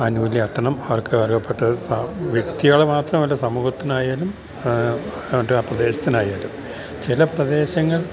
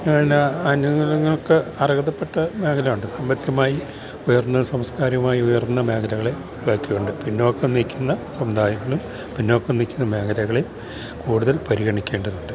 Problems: background sounds at intervals